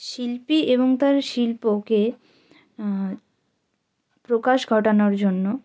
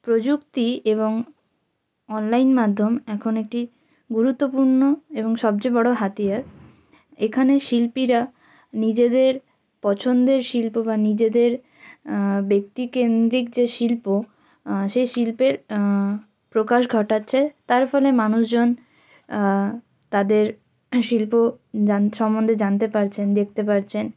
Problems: none marked